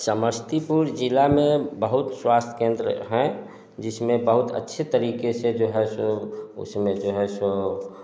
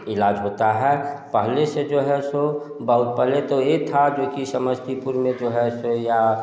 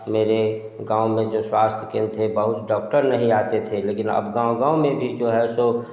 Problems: background sounds at intervals, echo